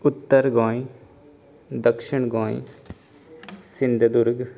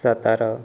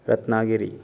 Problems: constant background noise